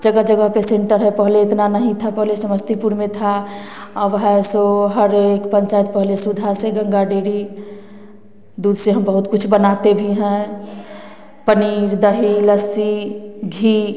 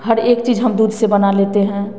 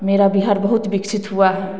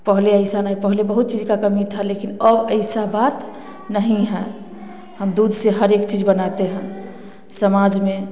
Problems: none marked